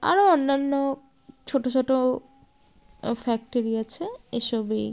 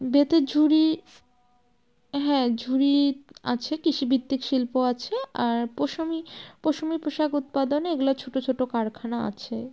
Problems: none marked